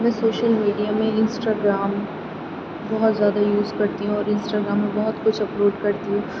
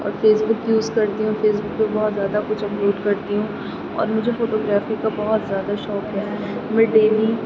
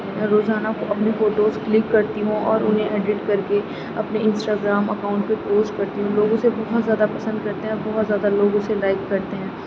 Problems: none marked